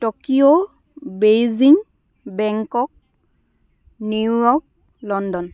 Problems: background sounds at intervals, continuous background conversations